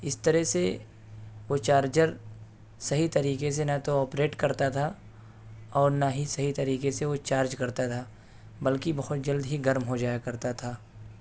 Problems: background sounds at intervals